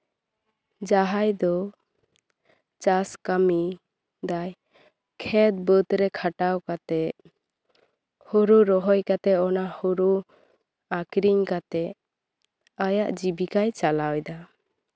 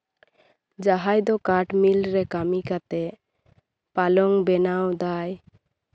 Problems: none marked